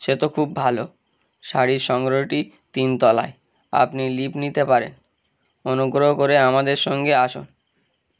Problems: low volume